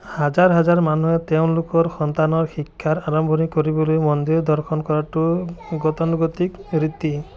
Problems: continuous background conversations